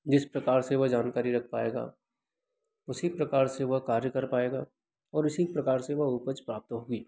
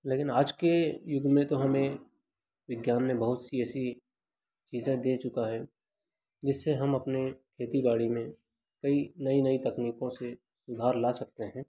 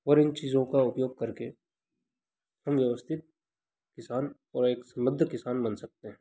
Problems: constant background noise